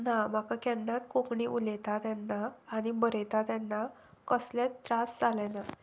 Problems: none marked